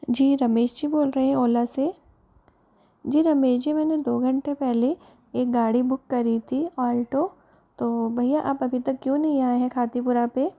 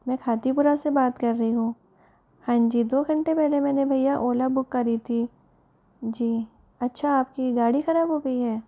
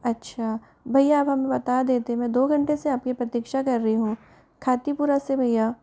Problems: background conversations at intervals